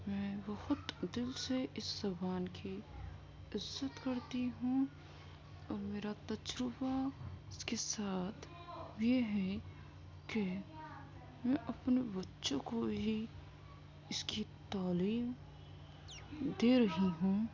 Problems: constant background noise, low volume